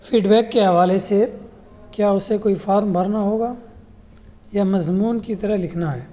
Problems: constant background noise